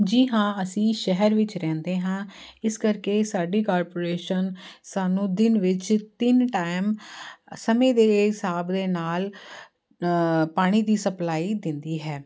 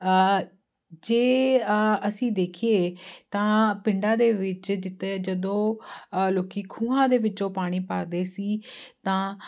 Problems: constant background noise